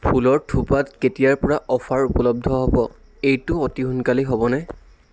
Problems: constant background noise